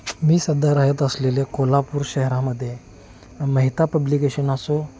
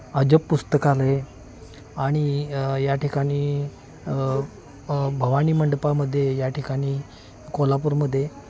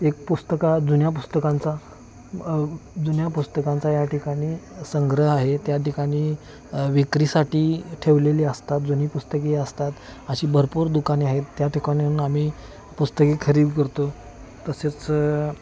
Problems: constant background noise